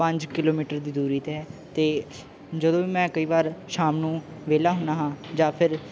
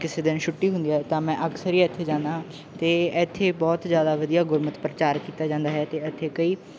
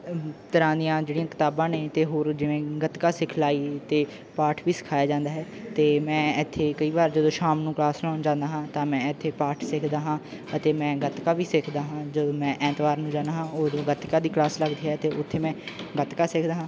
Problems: none marked